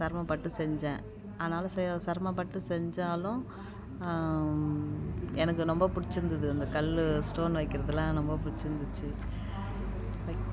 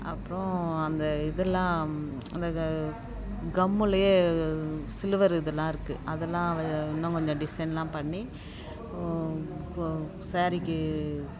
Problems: constant background noise